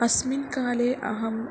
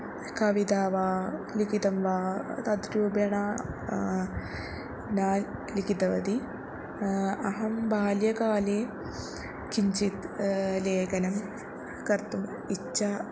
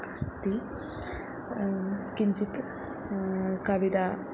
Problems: constant background noise